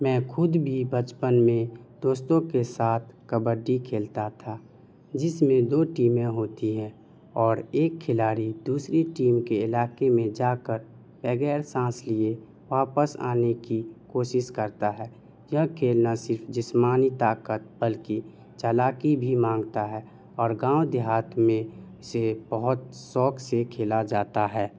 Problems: none marked